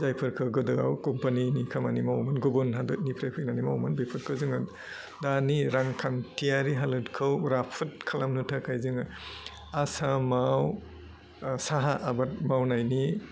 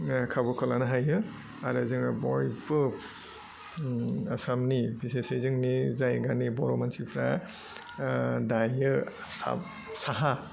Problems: low volume